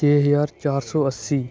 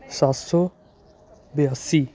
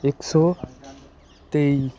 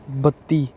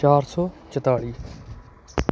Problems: continuous background conversations